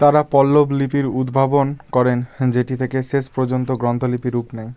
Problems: none marked